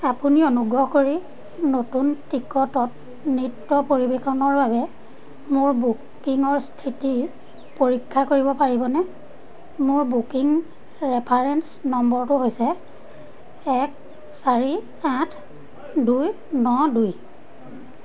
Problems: constant background noise, background conversations at intervals